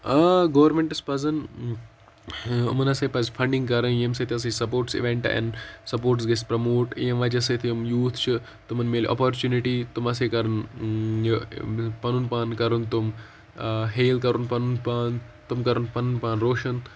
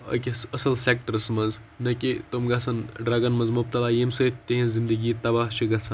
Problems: background sounds at intervals